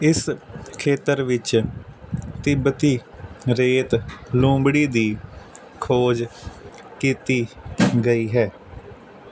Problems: constant background noise